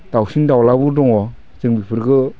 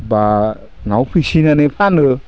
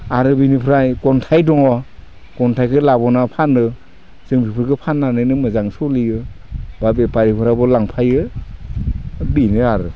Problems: low volume